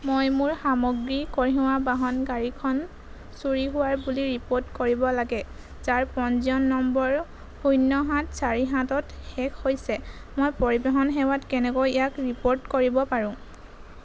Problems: none marked